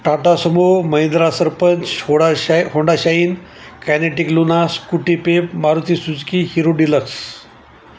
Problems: constant background noise